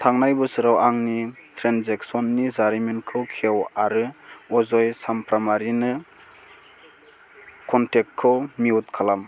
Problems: constant background noise